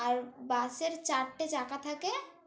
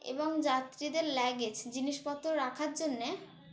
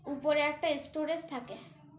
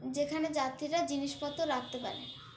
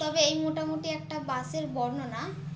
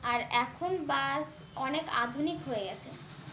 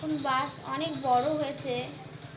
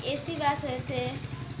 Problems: none marked